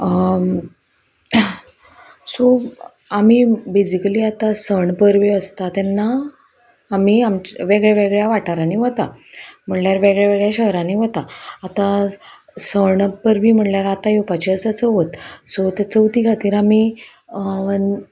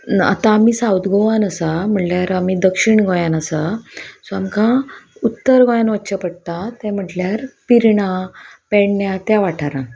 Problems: none marked